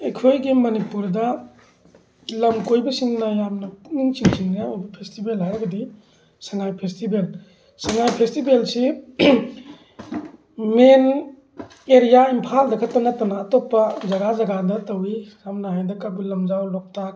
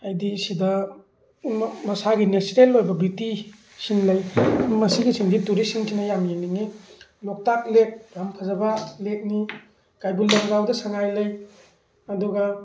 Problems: background sounds at intervals